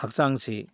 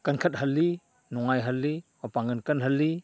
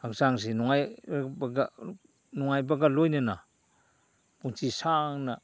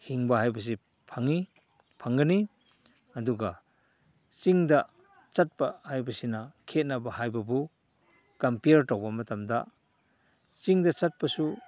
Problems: none marked